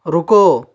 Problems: none marked